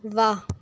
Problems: background sounds at intervals